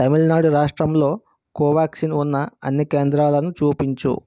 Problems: constant background noise